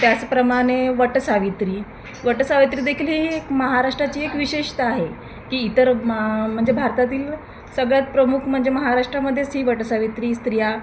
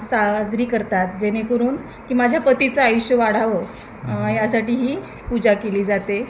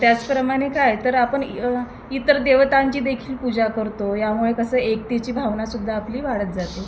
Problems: none marked